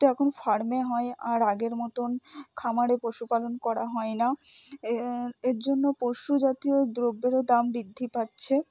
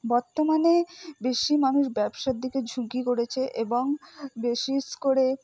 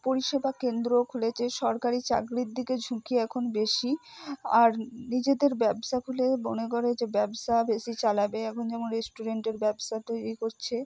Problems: low volume